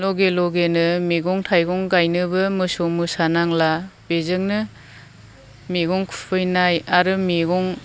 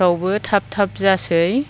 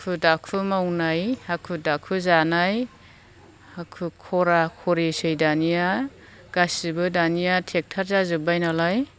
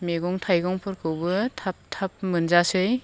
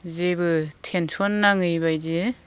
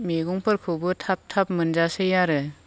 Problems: none marked